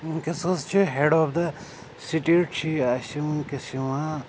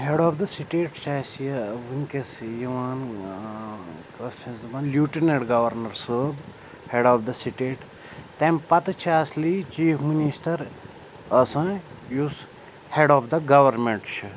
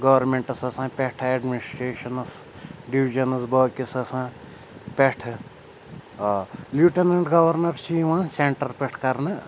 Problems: constant background noise, background conversations at intervals